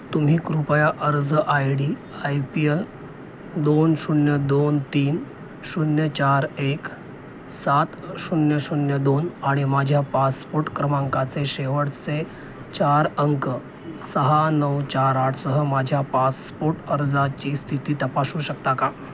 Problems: constant background noise